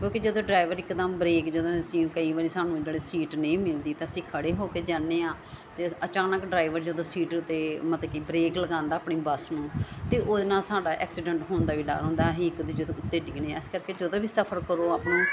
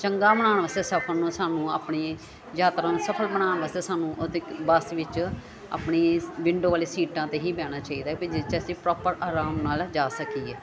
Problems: continuous background conversations